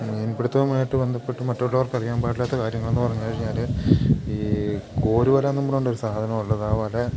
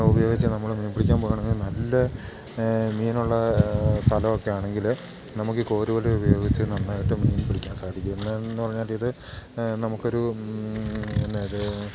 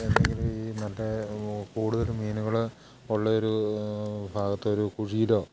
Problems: constant background noise